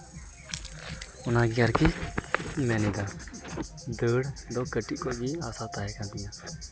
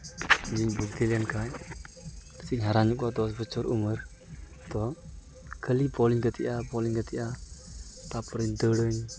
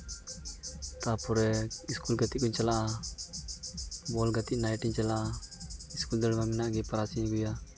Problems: none marked